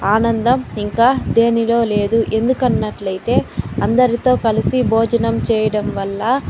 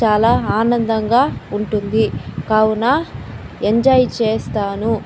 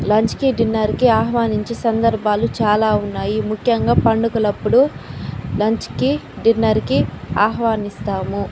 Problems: constant background noise